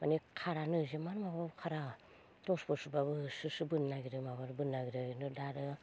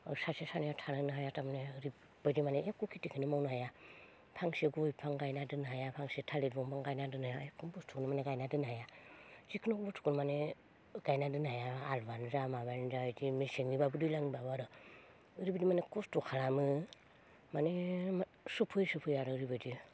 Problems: low volume